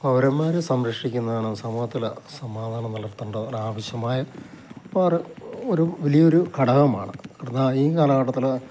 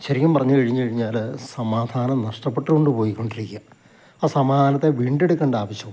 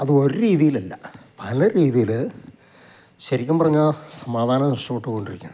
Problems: constant background noise, low volume